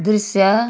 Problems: background sounds at intervals